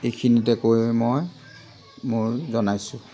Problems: background conversations at intervals